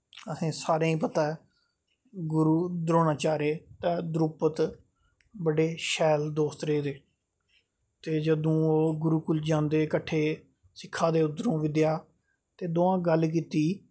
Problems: none marked